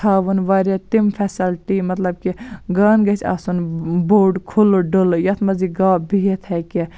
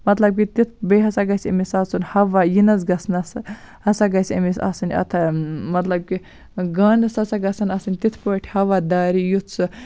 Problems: none marked